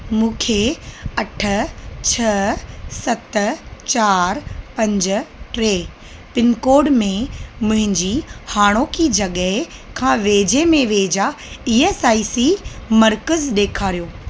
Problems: constant background noise